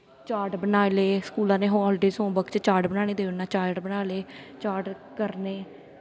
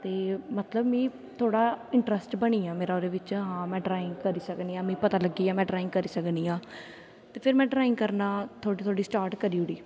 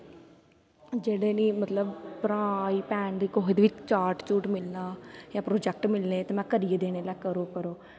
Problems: constant background noise